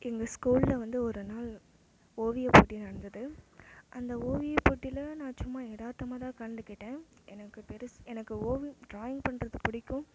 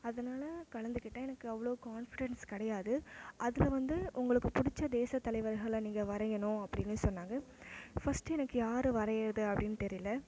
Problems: background sounds at intervals